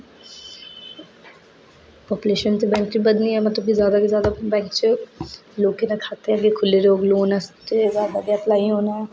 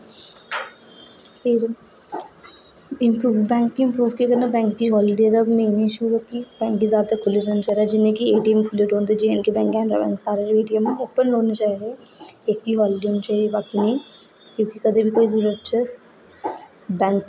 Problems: echo